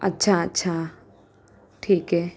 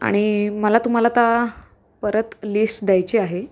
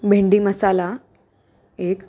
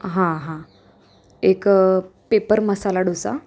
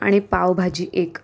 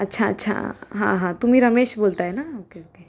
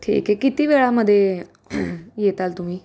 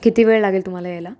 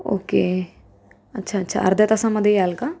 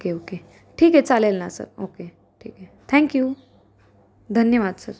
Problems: constant background noise, background conversations at intervals, echo